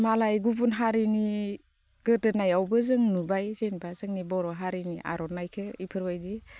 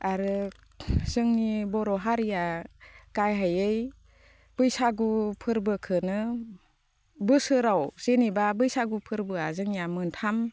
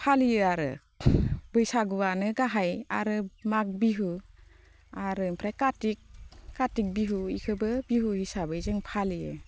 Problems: constant background noise